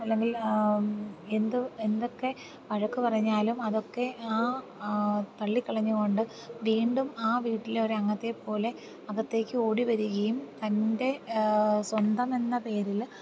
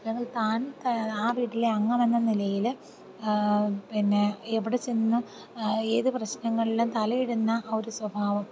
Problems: constant background noise, low volume